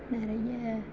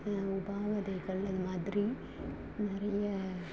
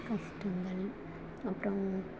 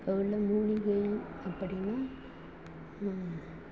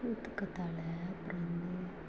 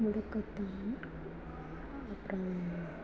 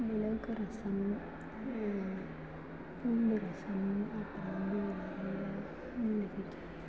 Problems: constant background noise, background conversations at intervals, low volume